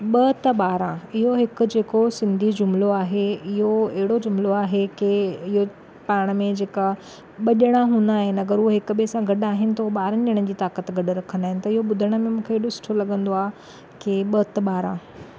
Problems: none marked